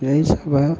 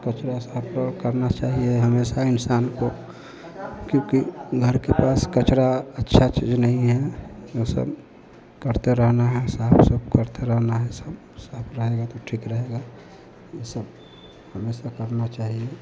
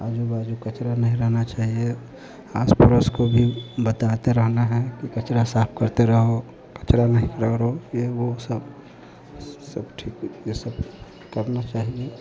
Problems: constant background noise